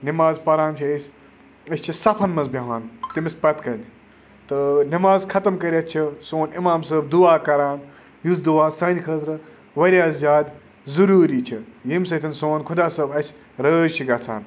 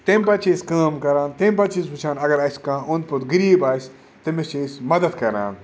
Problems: none marked